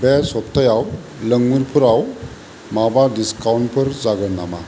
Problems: constant background noise